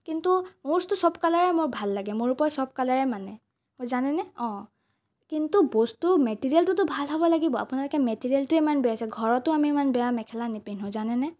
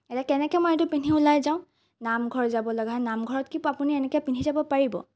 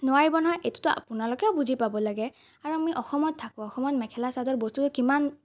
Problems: none marked